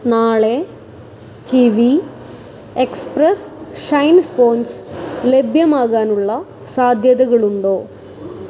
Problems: none marked